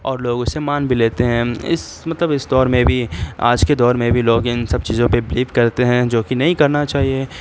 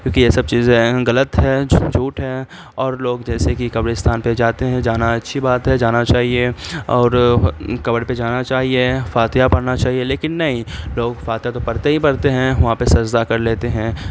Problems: constant background noise